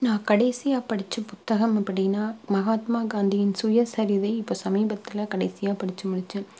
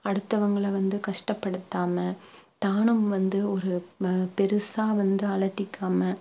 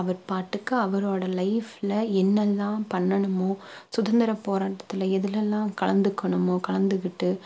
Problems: low volume